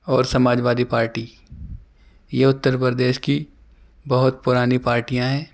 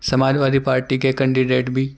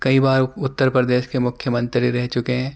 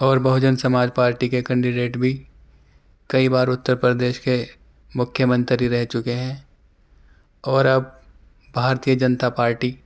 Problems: none marked